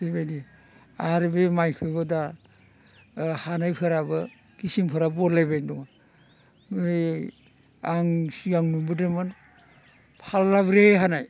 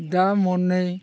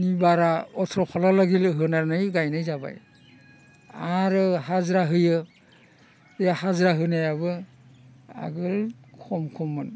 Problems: constant background noise